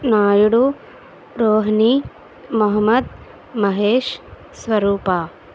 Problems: none marked